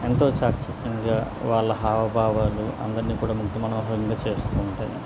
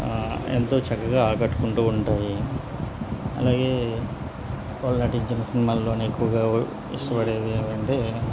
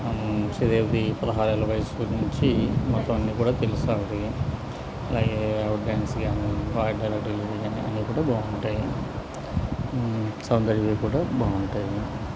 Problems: constant background noise